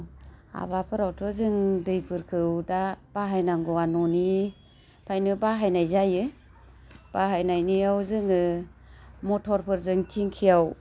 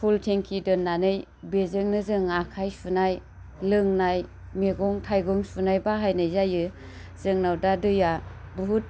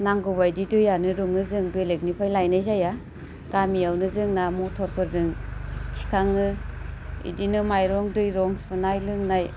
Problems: none marked